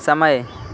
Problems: constant background noise